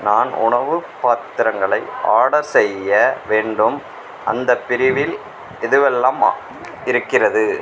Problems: none marked